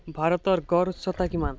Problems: constant background noise